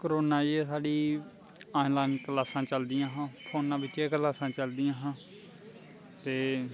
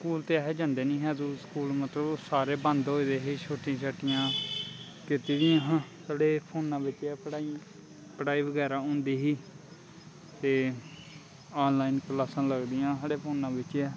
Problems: constant background noise